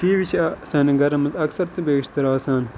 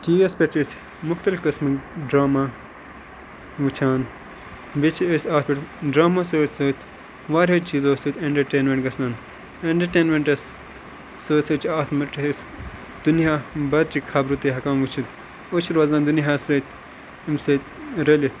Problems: constant background noise